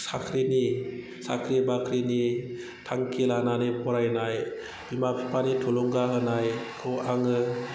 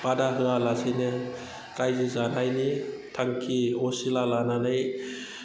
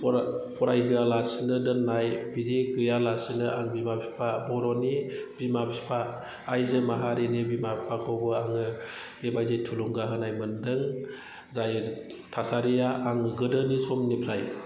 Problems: background sounds at intervals, background conversations at intervals